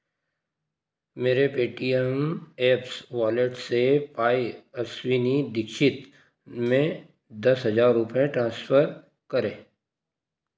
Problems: constant background noise